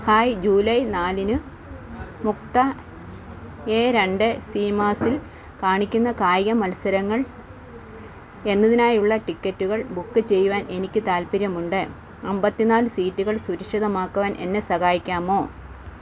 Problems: constant background noise